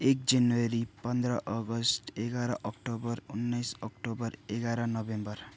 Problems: none marked